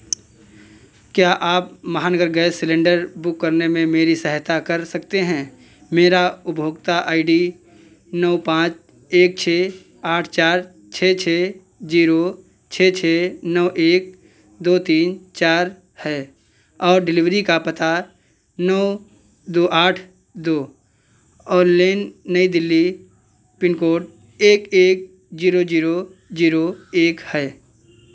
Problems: none marked